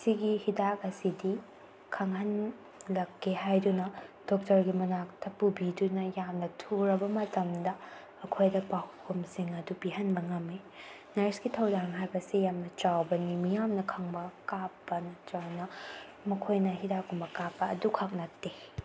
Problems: background sounds at intervals